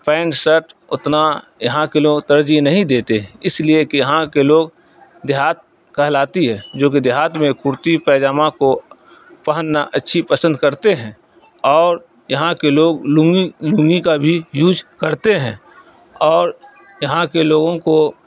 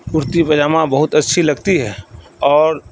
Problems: constant background noise, continuous background conversations